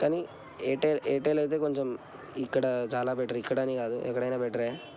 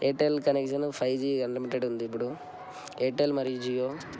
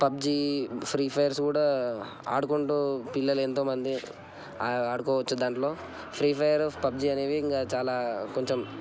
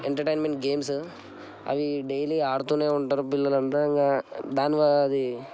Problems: constant background noise